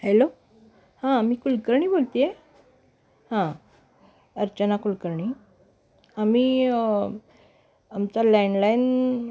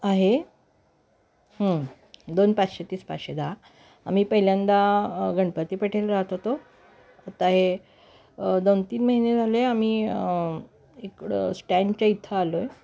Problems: none marked